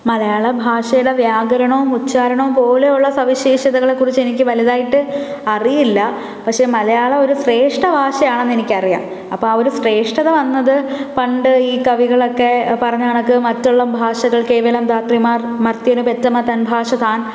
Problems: none marked